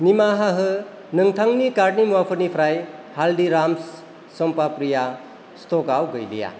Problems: constant background noise